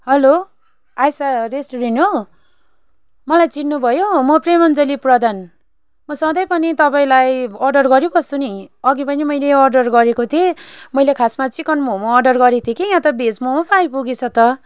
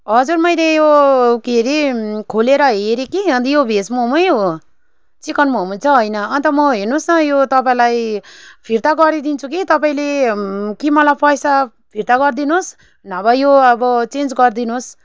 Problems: constant background noise